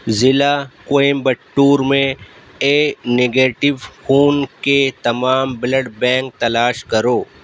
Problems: constant background noise